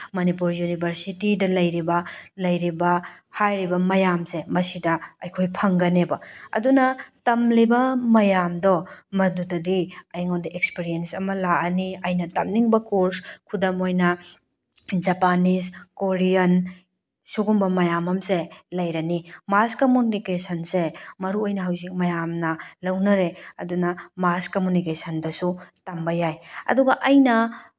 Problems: none marked